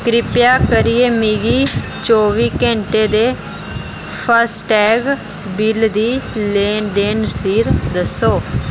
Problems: none marked